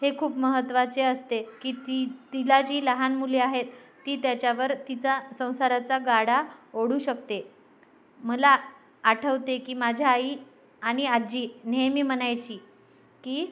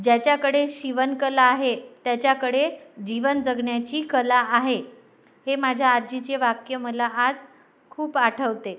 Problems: none marked